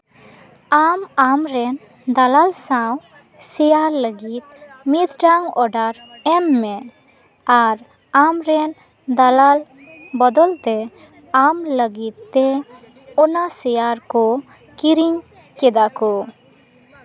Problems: background sounds at intervals, continuous background conversations